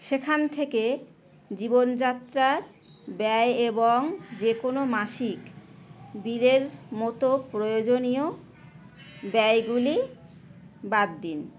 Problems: none marked